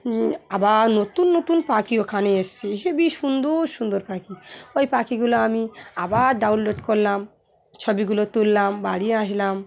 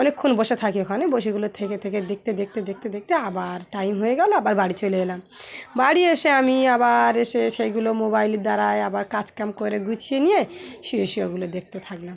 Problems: none marked